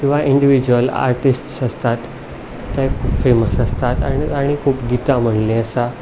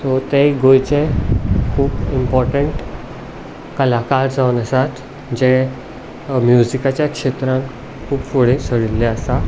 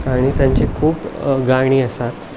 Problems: none marked